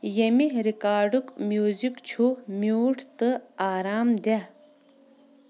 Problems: none marked